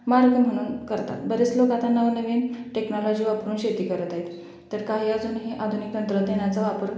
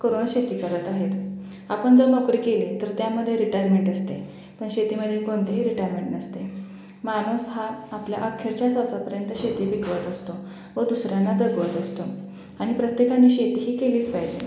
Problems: background sounds at intervals, echo